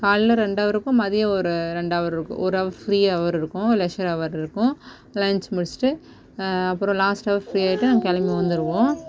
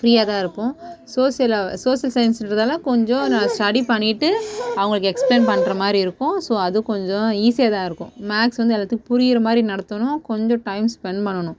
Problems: background conversations at intervals